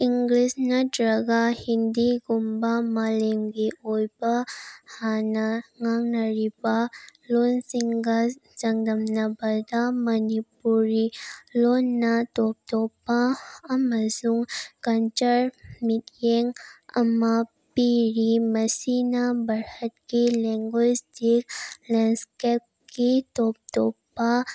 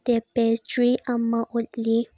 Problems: background sounds at intervals